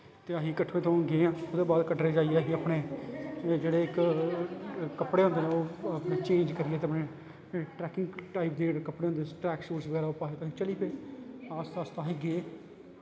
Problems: constant background noise